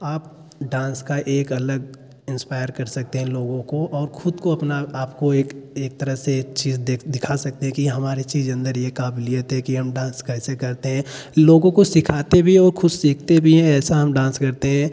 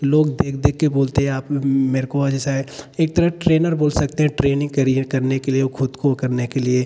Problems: none marked